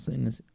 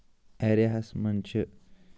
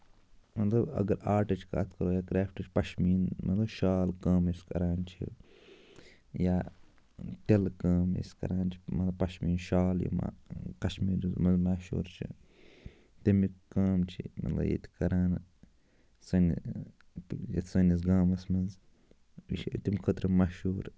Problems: low volume